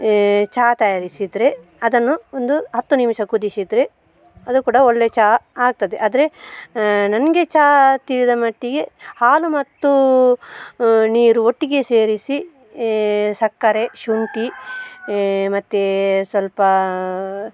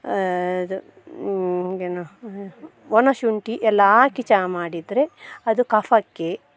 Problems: background sounds at intervals